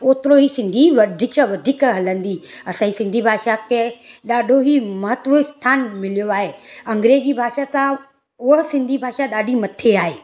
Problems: background sounds at intervals